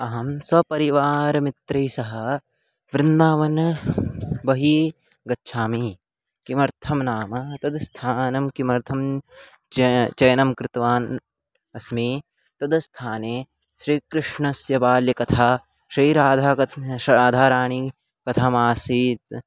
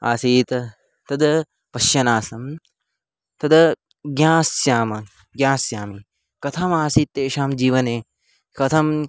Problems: background sounds at intervals